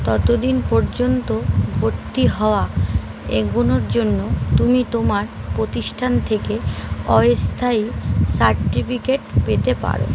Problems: constant background noise